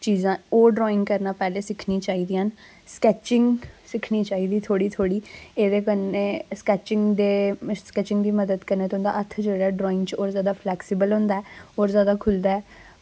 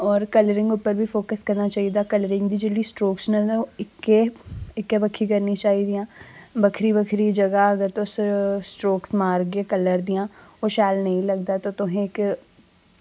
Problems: constant background noise